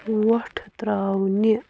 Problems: constant background noise